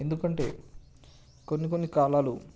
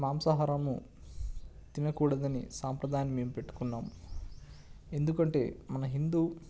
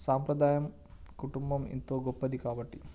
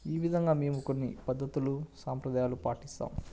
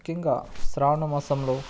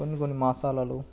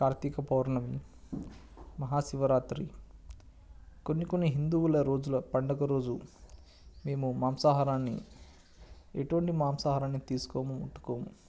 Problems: none marked